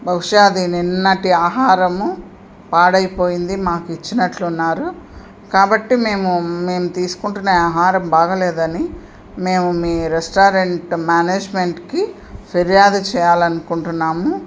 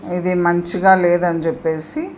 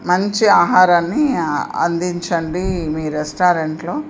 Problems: constant background noise